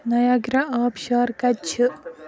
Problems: background sounds at intervals